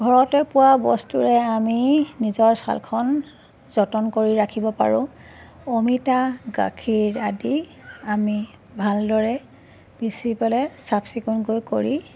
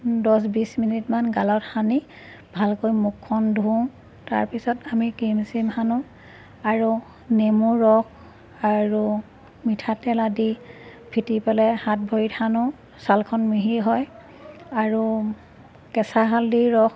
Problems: constant background noise